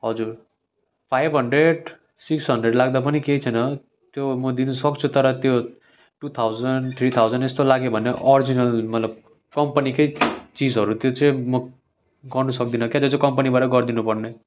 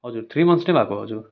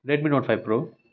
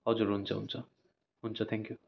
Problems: none marked